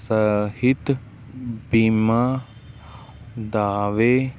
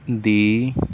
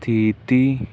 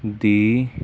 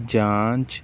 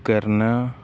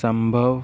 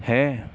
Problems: none marked